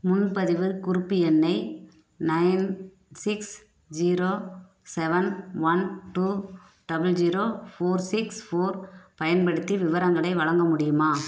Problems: background sounds at intervals